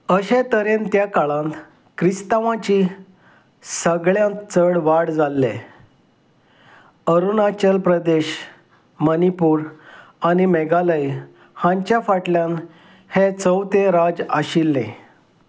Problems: none marked